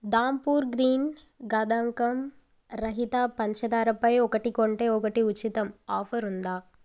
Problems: none marked